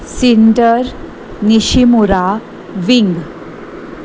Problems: constant background noise